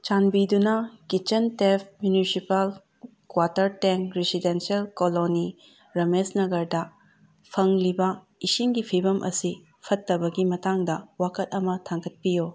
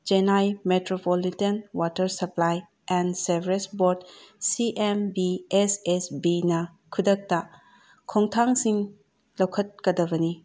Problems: none marked